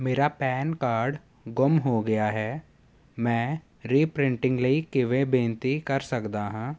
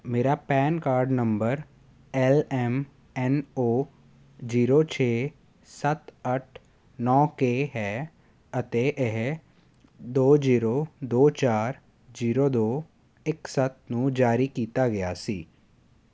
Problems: none marked